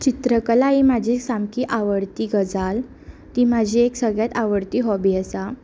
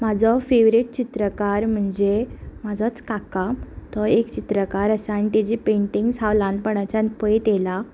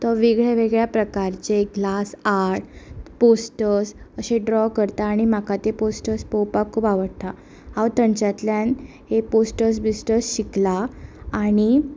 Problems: none marked